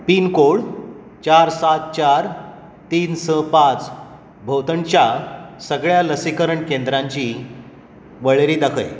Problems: echo